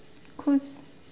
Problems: constant background noise